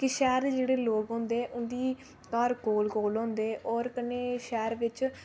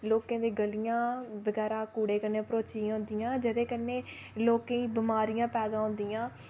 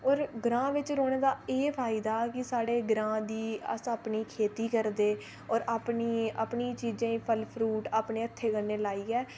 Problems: none marked